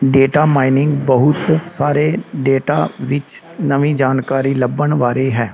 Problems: constant background noise